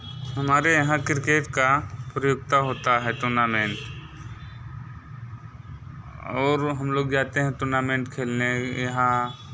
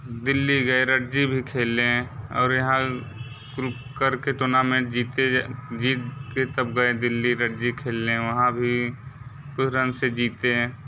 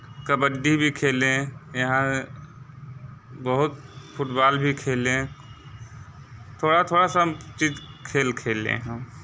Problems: none marked